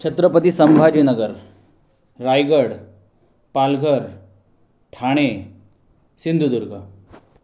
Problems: constant background noise